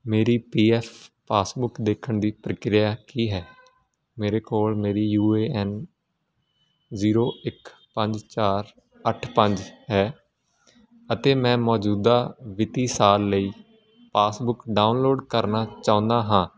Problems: constant background noise